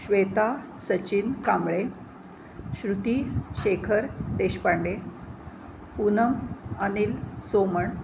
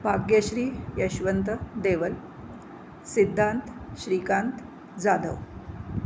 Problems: constant background noise